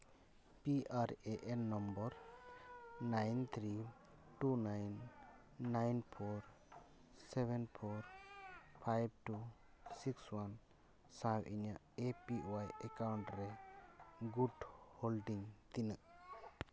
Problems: background sounds at intervals